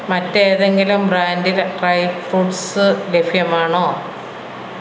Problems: constant background noise